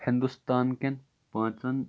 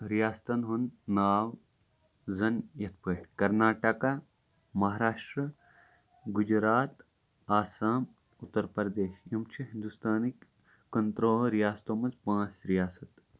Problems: none marked